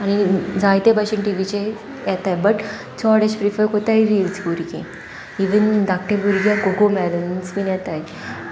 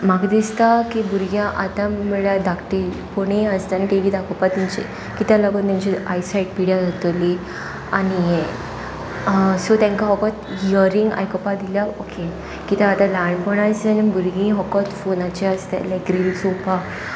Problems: constant background noise